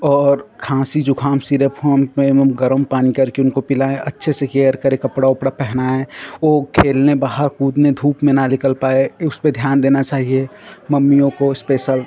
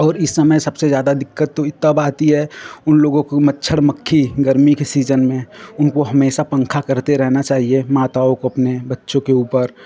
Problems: background conversations at intervals